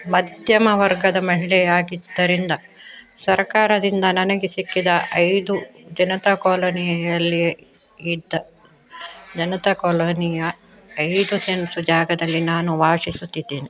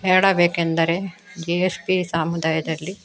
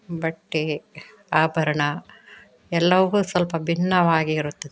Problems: background conversations at intervals